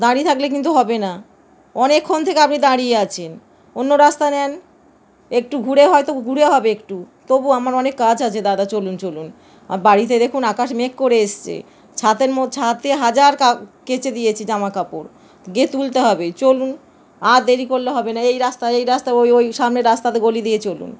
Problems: none marked